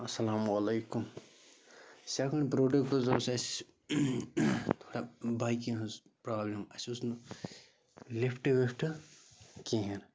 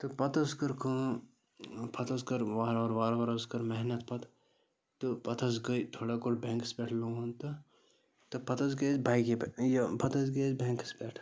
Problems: constant background noise